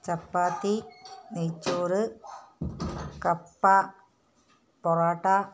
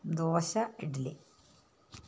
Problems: low volume